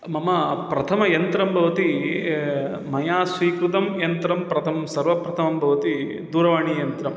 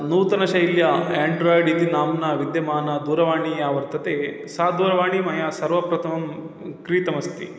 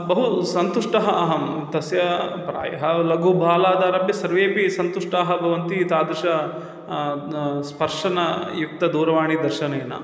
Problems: none marked